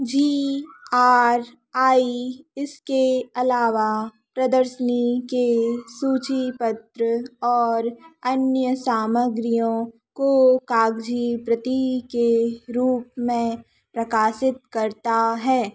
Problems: none marked